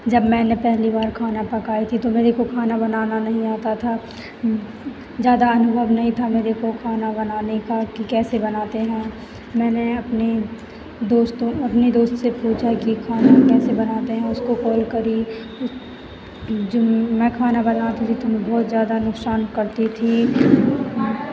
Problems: constant background noise